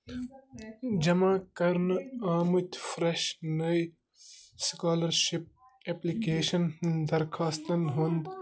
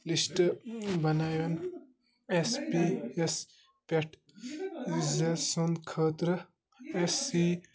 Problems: constant background noise, continuous background conversations